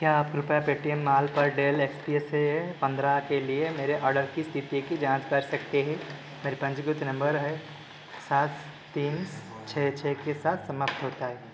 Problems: background sounds at intervals